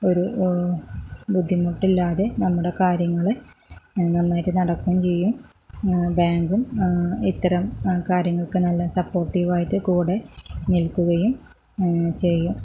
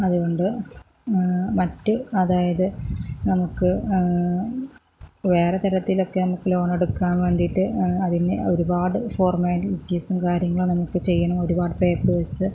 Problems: low volume